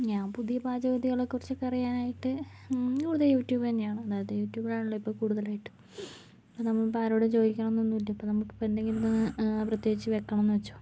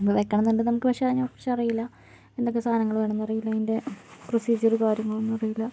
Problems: background sounds at intervals, low volume